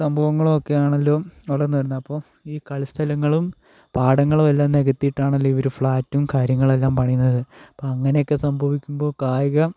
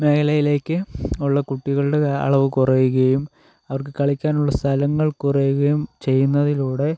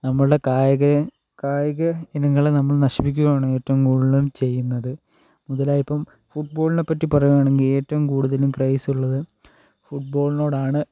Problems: low volume